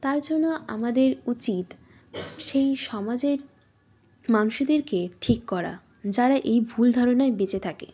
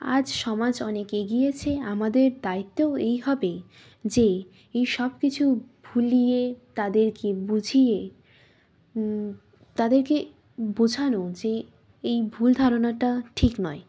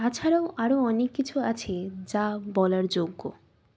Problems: background sounds at intervals